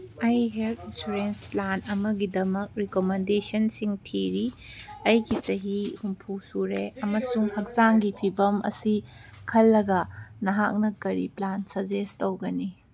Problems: background conversations at intervals